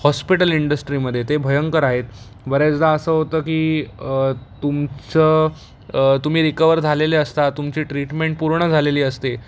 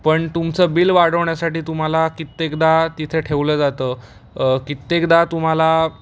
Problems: constant background noise, background conversations at intervals